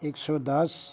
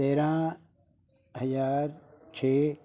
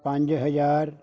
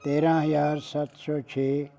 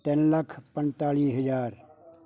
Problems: none marked